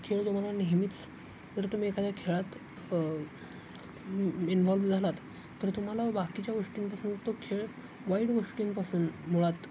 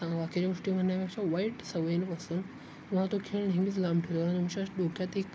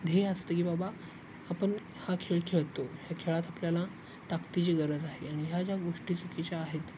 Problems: constant background noise, background conversations at intervals, low volume